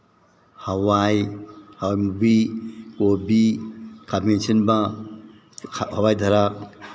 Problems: none marked